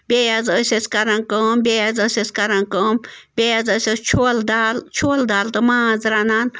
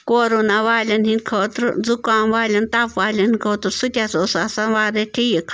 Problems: none marked